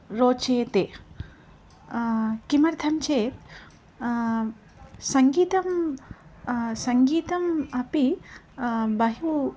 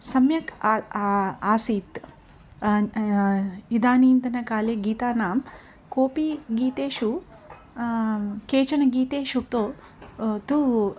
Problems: none marked